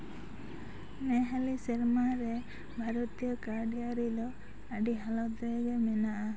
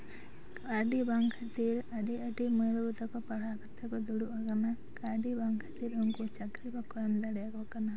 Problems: constant background noise